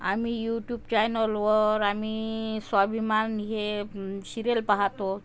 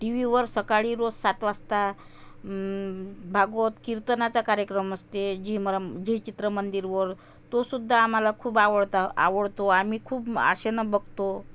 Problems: constant background noise